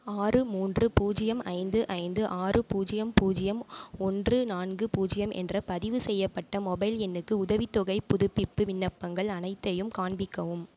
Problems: none marked